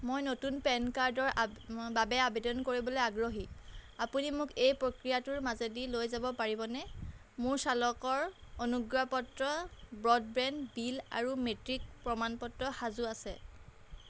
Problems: none marked